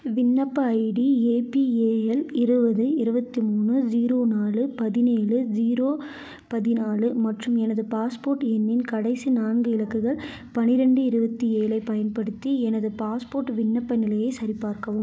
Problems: none marked